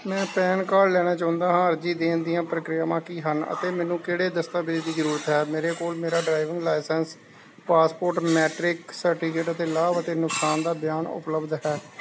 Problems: constant background noise